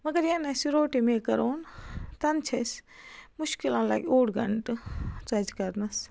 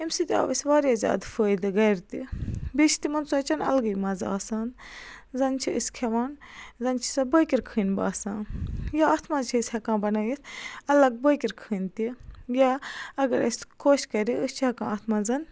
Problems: constant background noise